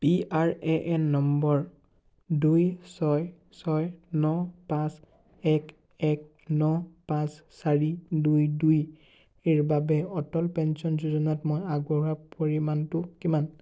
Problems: none marked